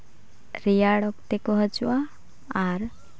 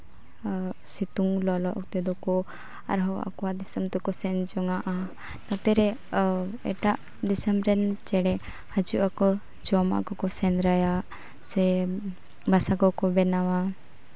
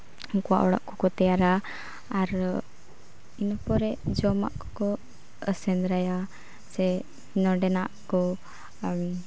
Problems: none marked